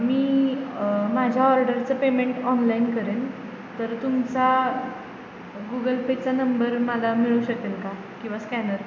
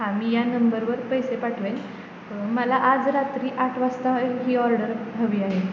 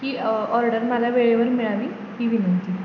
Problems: constant background noise